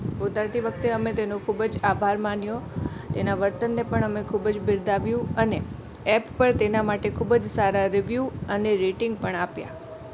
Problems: constant background noise